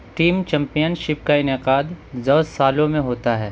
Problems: constant background noise